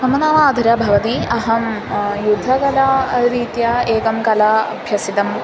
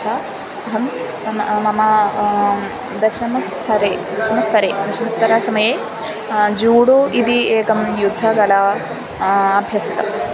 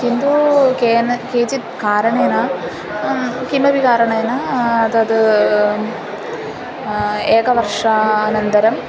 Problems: constant background noise